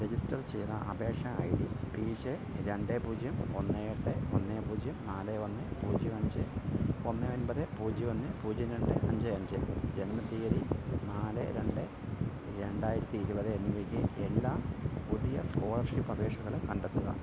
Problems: constant background noise, low volume